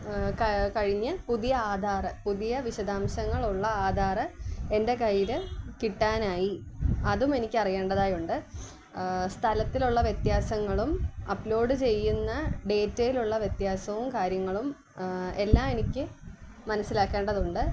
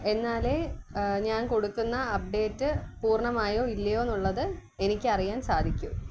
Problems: background sounds at intervals